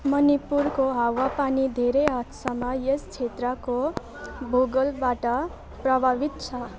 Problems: constant background noise, continuous background conversations